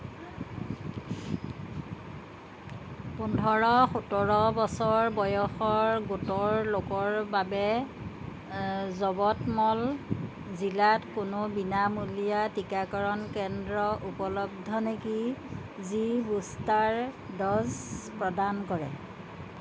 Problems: background sounds at intervals